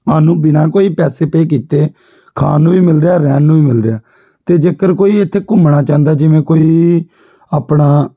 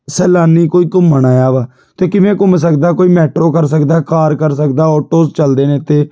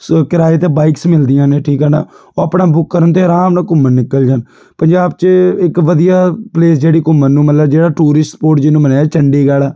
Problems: background sounds at intervals